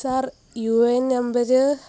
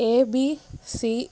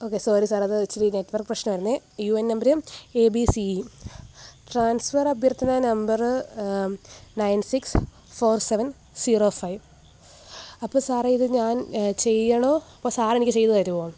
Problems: background sounds at intervals